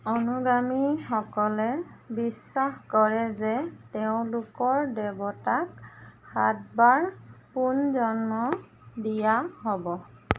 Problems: constant background noise